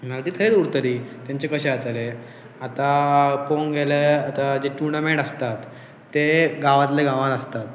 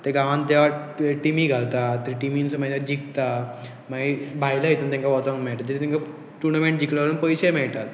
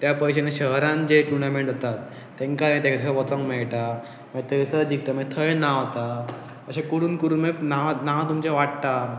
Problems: background sounds at intervals